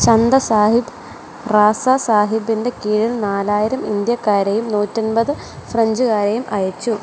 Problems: background sounds at intervals